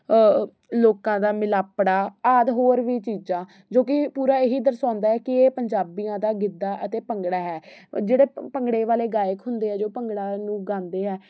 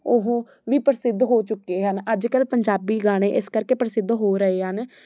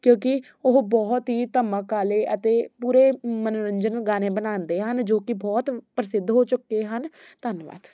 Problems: none marked